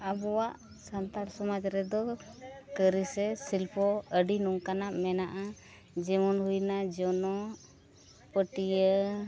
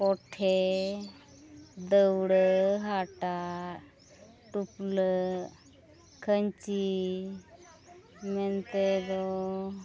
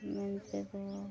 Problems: background sounds at intervals, low volume